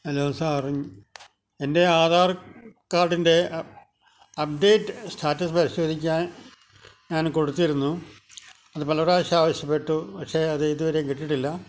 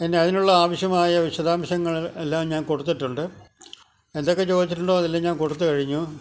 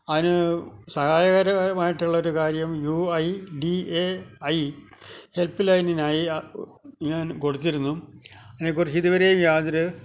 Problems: constant background noise, low volume